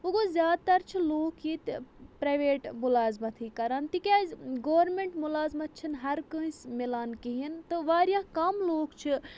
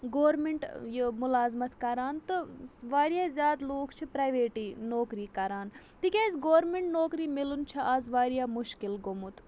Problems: none marked